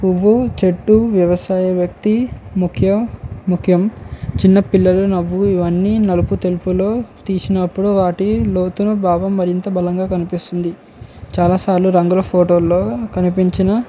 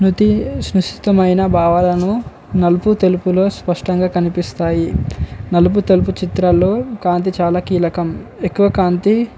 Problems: none marked